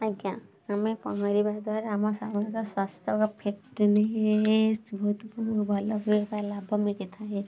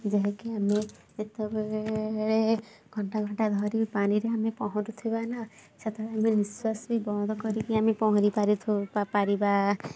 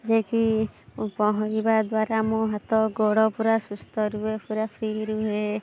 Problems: constant background noise